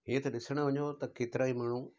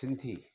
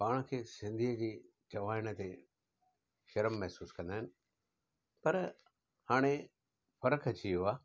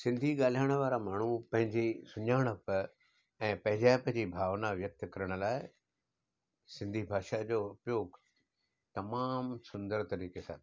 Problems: none marked